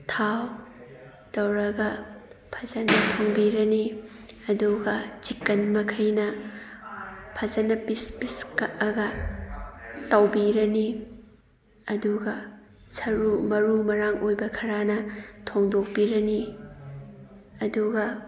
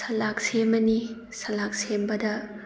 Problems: background sounds at intervals, background conversations at intervals